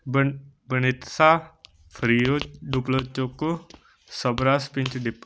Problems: constant background noise